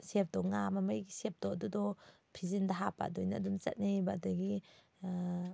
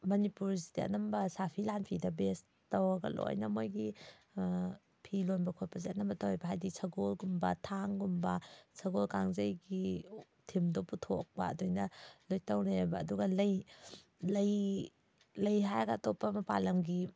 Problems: none marked